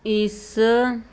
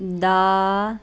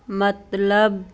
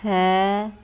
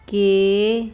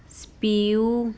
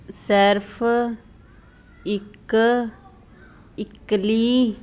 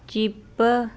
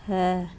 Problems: constant background noise